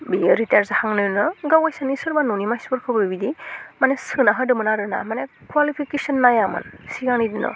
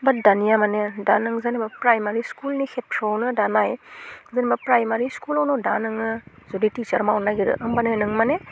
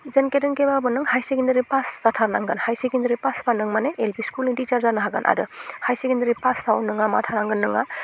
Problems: constant background noise